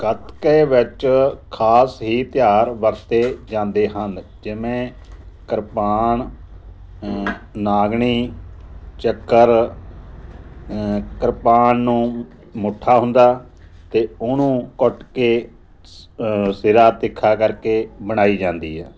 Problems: background sounds at intervals